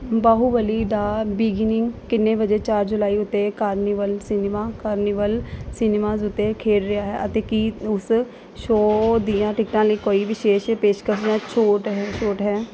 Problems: none marked